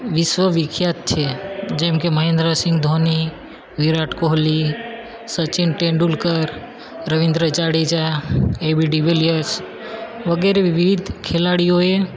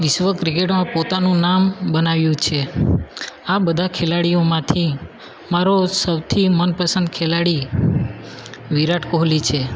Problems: constant background noise